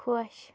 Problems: background sounds at intervals